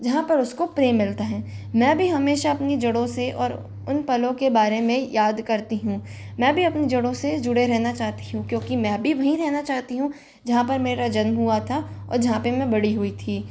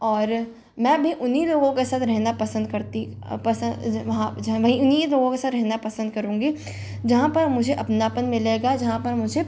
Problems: constant background noise